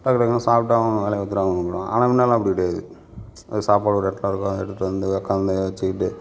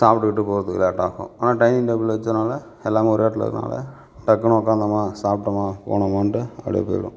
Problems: none marked